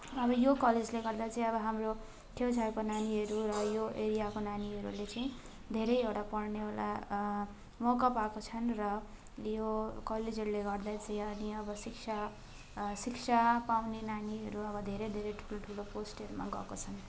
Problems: constant background noise, continuous background conversations